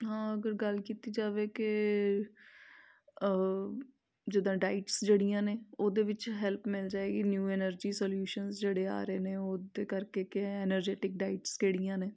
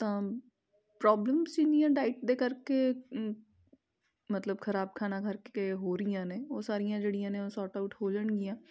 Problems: background sounds at intervals